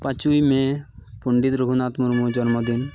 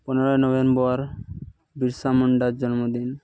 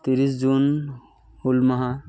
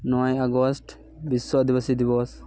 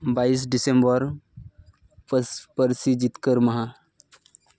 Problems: constant background noise, continuous background conversations